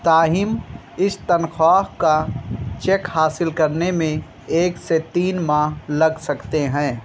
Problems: constant background noise